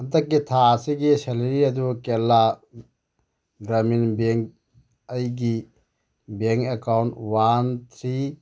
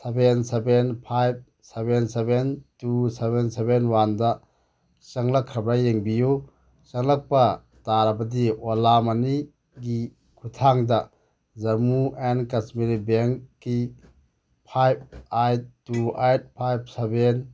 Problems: none marked